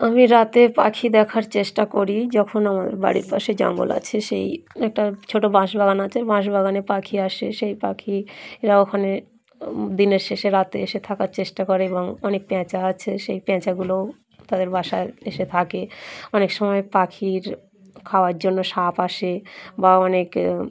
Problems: none marked